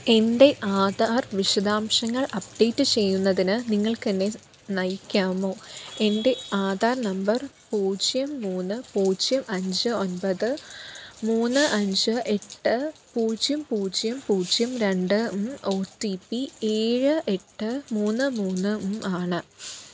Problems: constant background noise